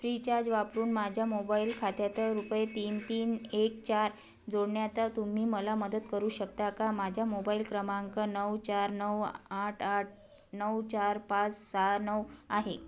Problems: none marked